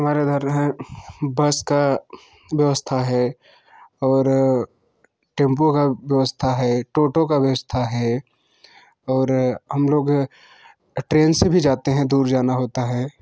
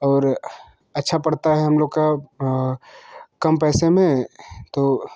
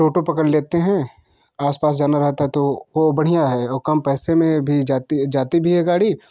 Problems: constant background noise